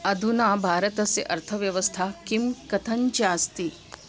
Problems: constant background noise